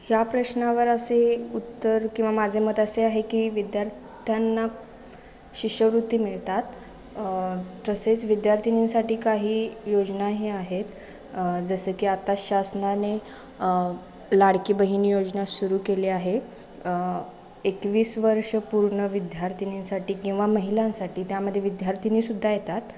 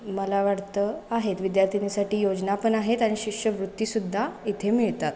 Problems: constant background noise, echo